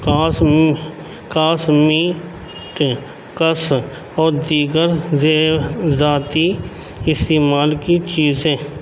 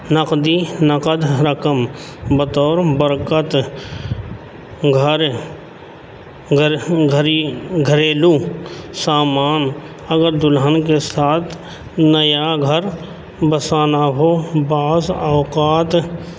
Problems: constant background noise, background conversations at intervals